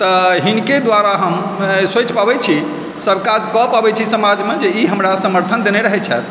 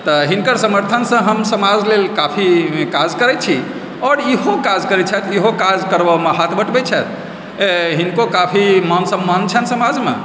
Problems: constant background noise